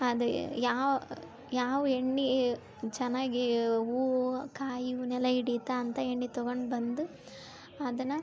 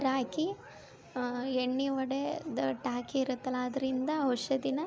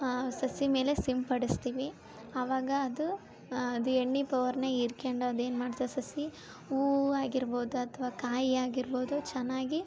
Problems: background sounds at intervals